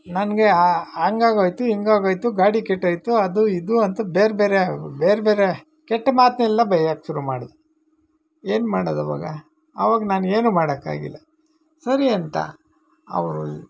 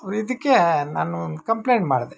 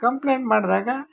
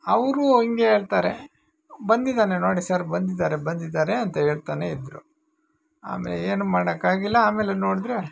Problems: background sounds at intervals